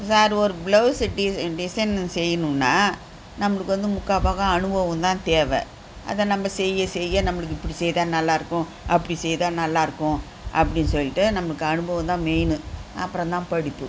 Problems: constant background noise